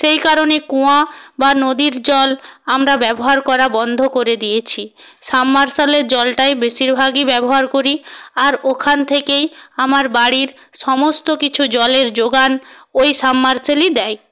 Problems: none marked